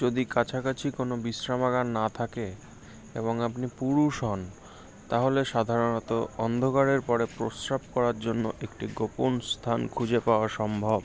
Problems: constant background noise